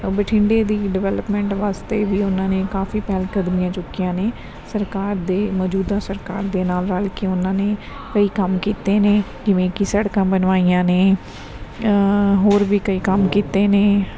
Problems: background sounds at intervals, background conversations at intervals